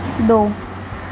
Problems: constant background noise